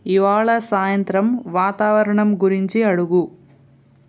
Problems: none marked